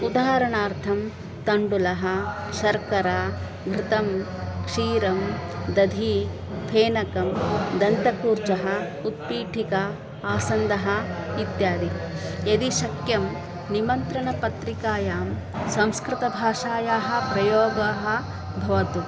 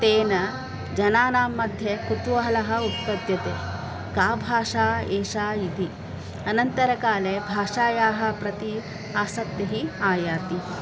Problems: constant background noise, continuous background conversations